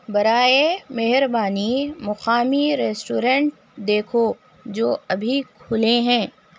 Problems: constant background noise